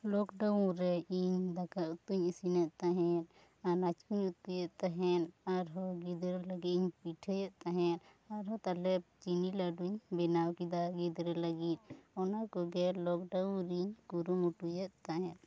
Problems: low volume